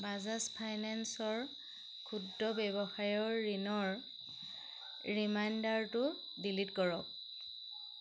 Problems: constant background noise